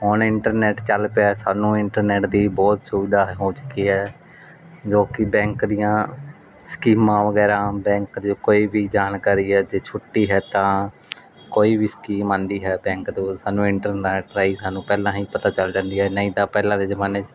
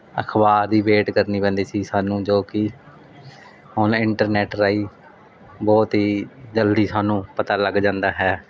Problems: background sounds at intervals